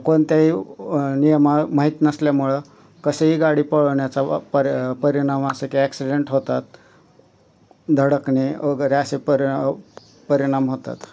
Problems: none marked